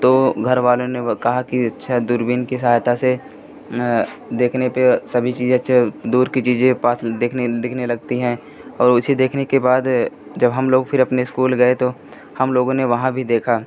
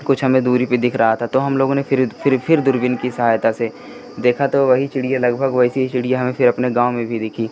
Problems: constant background noise